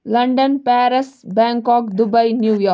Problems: background sounds at intervals